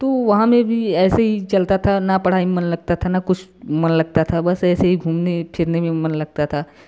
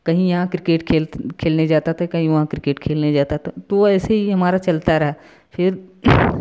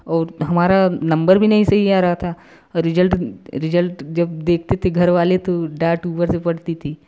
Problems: constant background noise